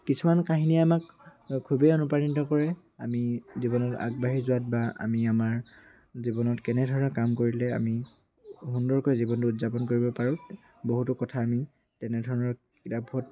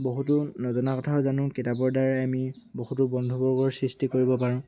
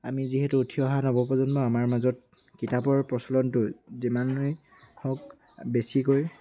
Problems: constant background noise, background conversations at intervals